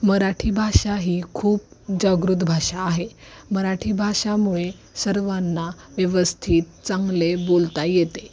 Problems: constant background noise, background conversations at intervals